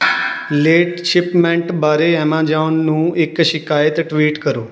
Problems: background sounds at intervals, background conversations at intervals